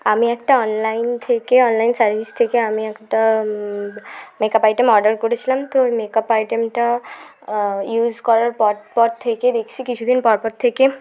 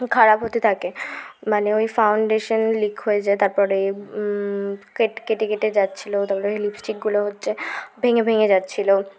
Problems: constant background noise